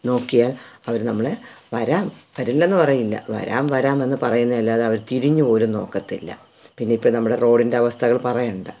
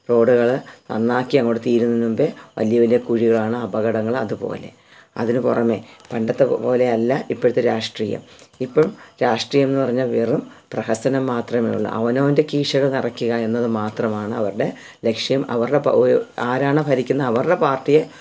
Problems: none marked